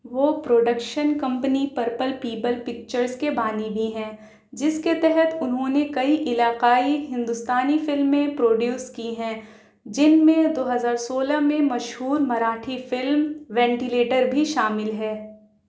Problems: none marked